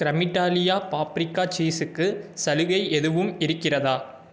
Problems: none marked